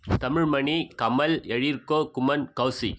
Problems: background sounds at intervals